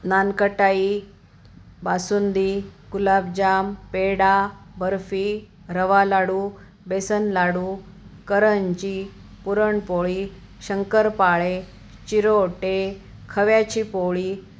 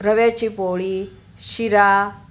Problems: constant background noise